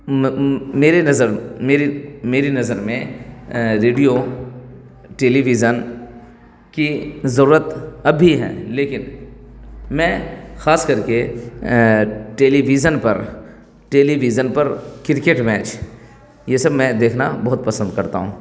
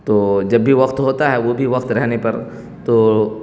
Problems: none marked